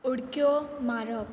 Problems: constant background noise